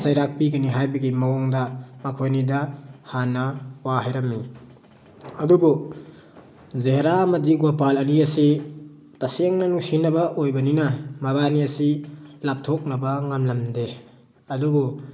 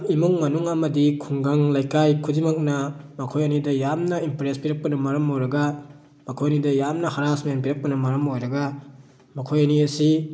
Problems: background sounds at intervals